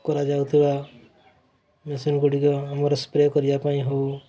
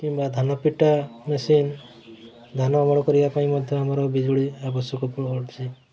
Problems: constant background noise, continuous background conversations